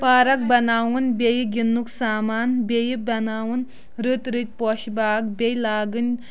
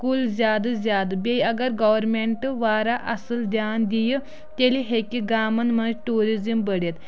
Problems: continuous background conversations